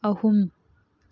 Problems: none marked